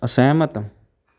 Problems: none marked